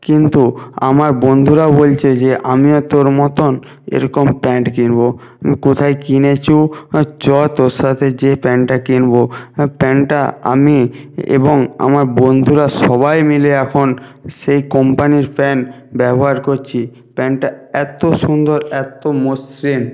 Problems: none marked